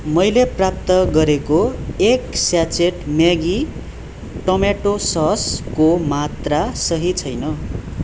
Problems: none marked